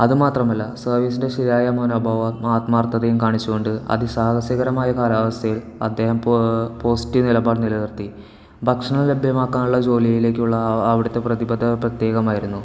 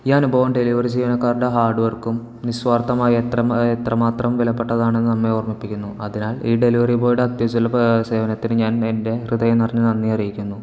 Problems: background sounds at intervals